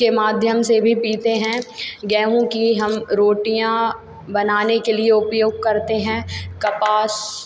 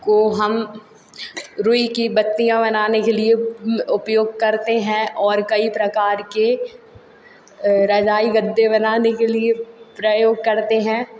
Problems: constant background noise